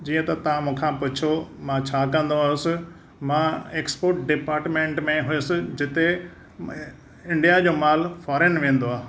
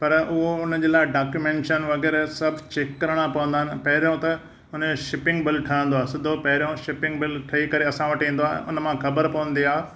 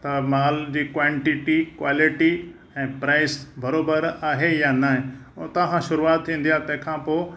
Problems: none marked